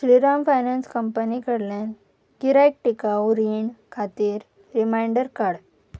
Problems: none marked